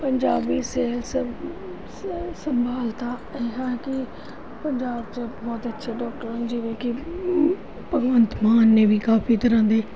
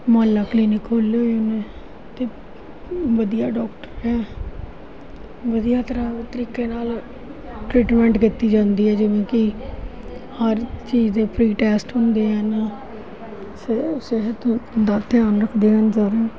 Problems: constant background noise, continuous background conversations